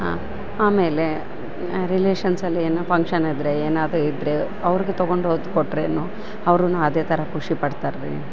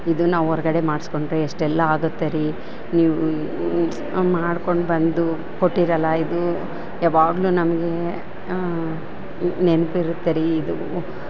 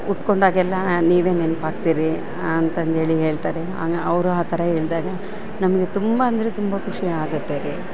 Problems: background sounds at intervals